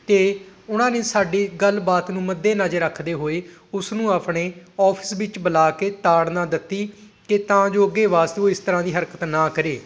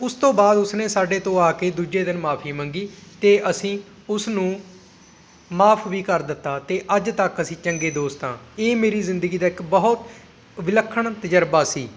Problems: constant background noise